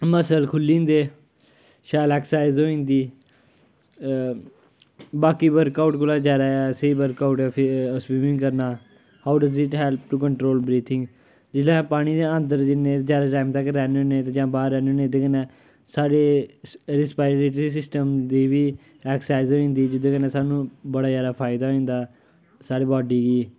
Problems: none marked